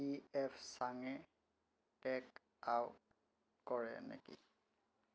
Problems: low volume